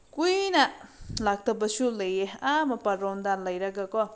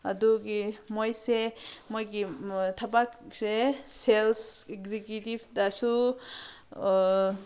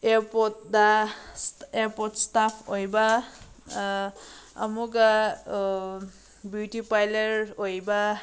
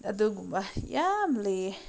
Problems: none marked